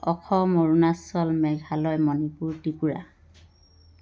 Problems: constant background noise